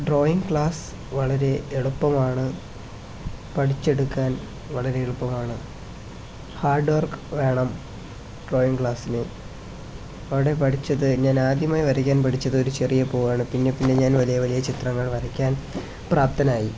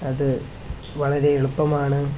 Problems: constant background noise